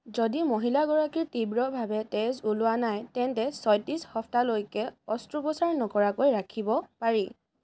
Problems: none marked